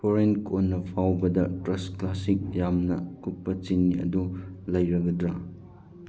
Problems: background sounds at intervals